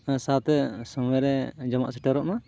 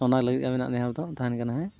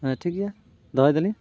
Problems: background sounds at intervals, background conversations at intervals